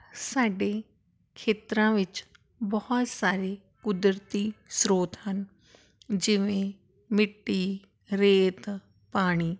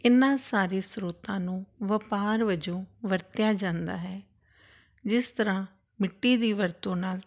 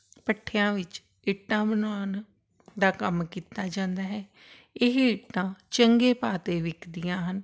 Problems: none marked